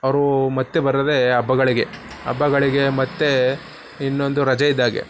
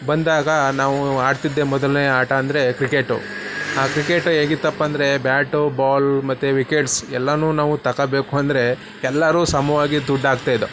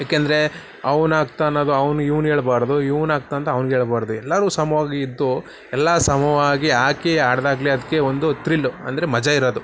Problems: constant background noise